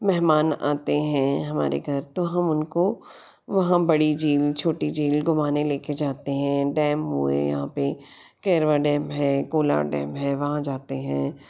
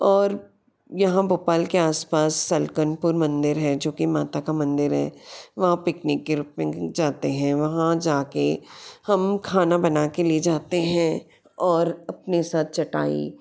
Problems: none marked